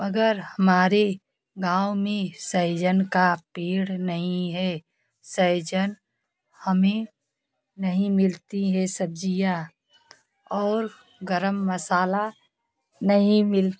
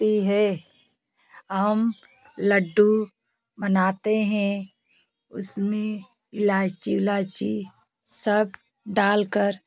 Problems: constant background noise, continuous background conversations